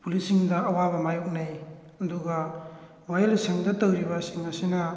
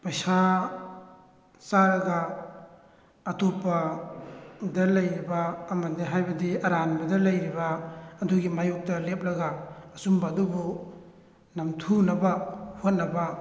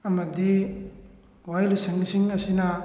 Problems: background sounds at intervals